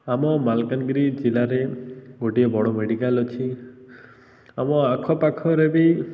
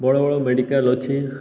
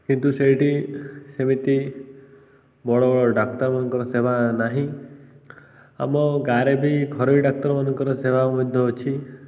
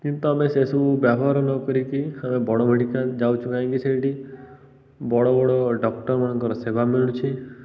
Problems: constant background noise